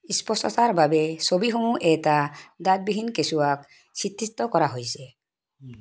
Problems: background sounds at intervals